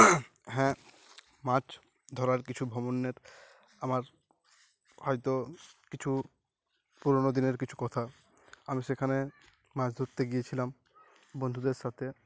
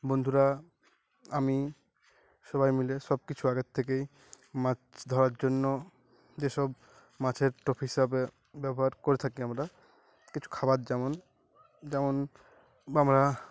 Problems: none marked